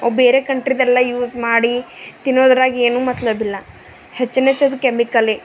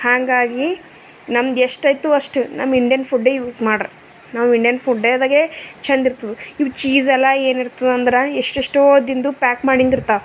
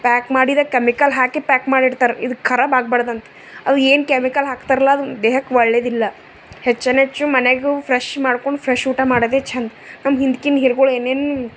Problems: none marked